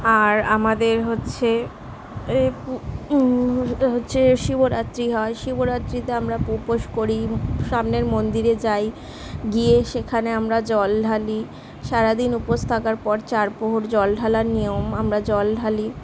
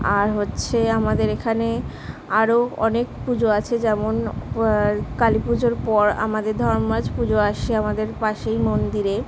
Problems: constant background noise, background conversations at intervals